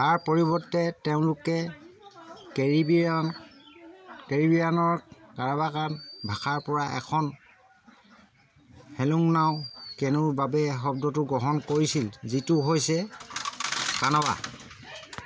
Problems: constant background noise